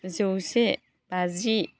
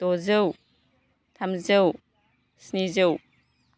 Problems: constant background noise